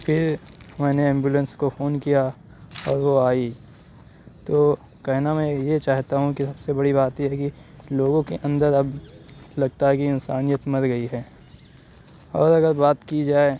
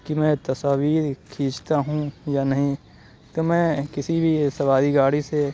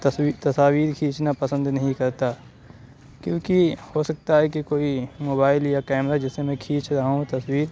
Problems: constant background noise, low volume